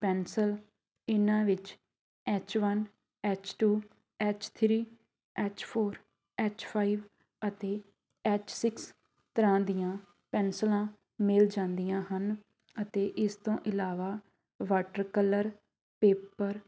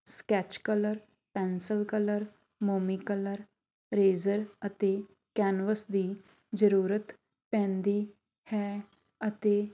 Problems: background sounds at intervals, background conversations at intervals